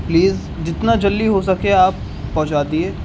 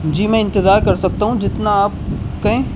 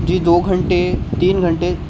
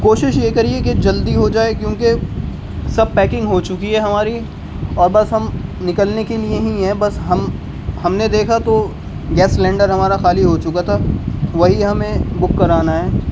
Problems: constant background noise, background conversations at intervals